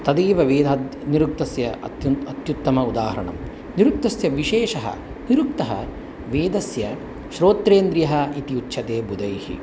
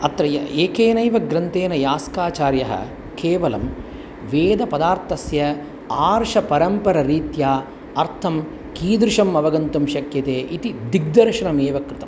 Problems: none marked